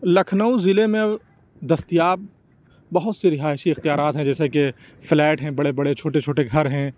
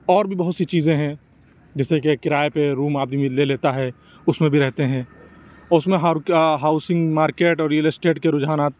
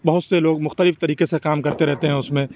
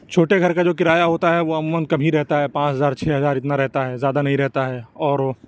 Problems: none marked